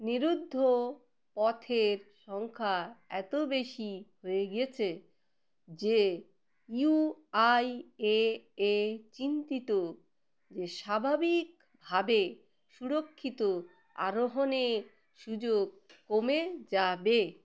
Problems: background sounds at intervals